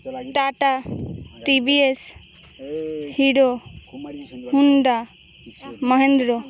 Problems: constant background noise, continuous background conversations